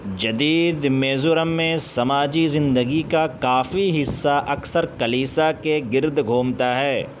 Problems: constant background noise